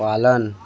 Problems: none marked